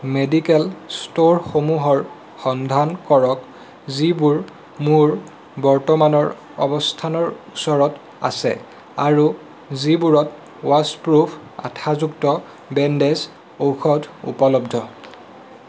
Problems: constant background noise